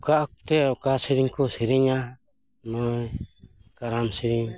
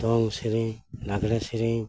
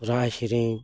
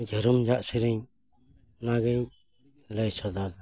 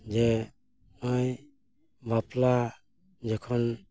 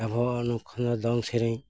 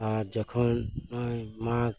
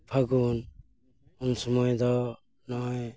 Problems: background sounds at intervals